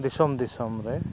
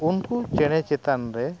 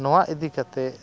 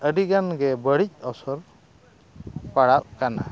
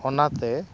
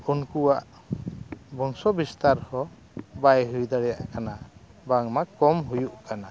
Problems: constant background noise, background conversations at intervals